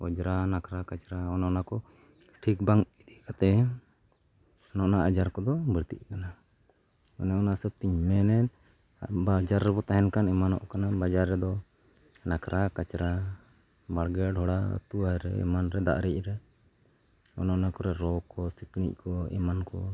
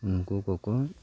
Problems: none marked